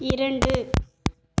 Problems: background sounds at intervals